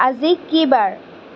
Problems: constant background noise